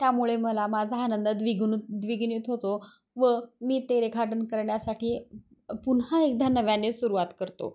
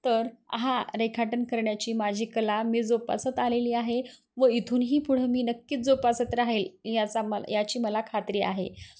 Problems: none marked